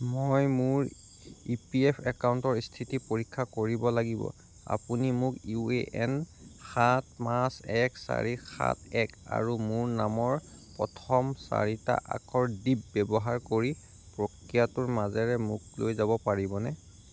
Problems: none marked